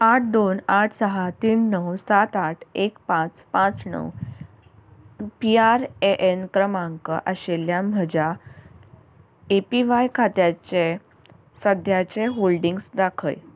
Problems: constant background noise